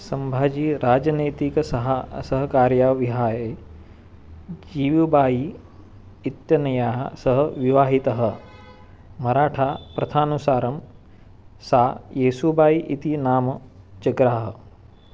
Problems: constant background noise